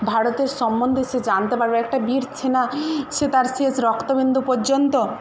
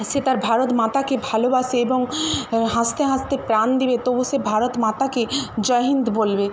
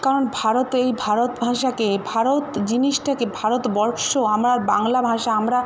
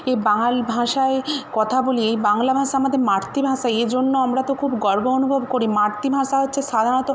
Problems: constant background noise